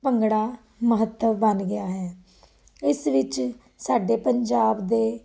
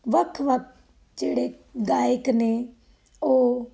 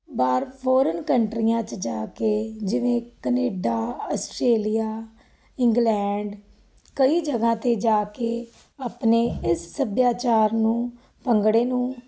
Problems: none marked